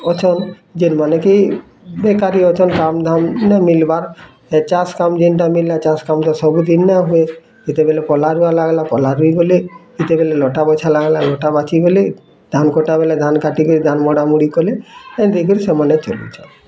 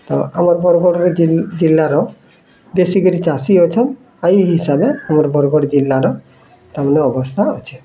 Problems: constant background noise, continuous background conversations